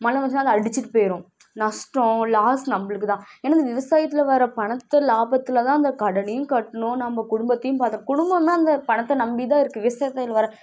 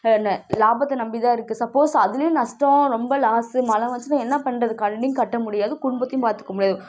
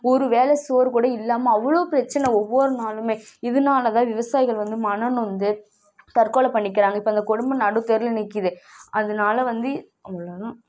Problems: background sounds at intervals